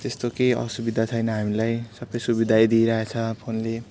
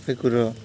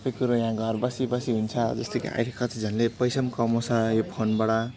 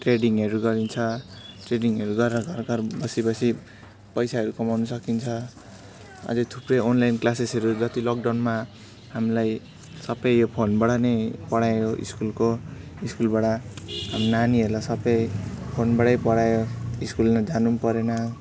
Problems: constant background noise, background conversations at intervals